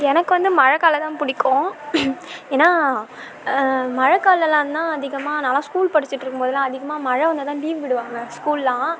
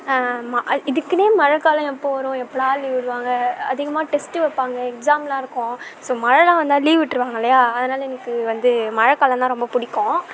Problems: none marked